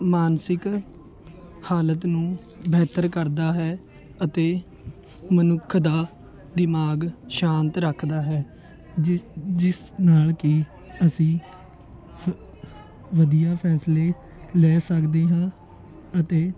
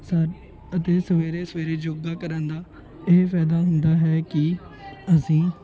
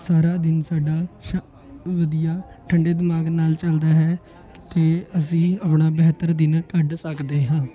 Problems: continuous background conversations